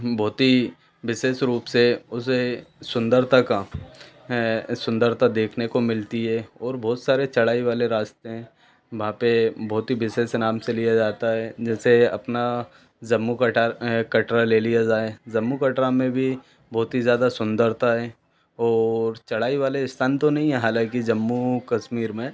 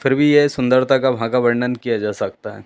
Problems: none marked